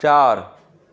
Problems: constant background noise